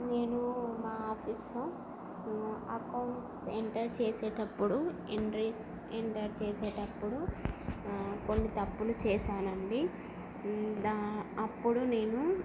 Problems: constant background noise, low volume